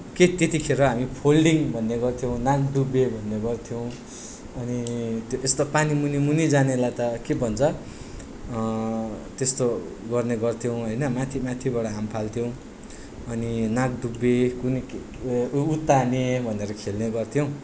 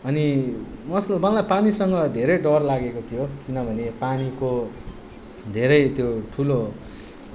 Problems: none marked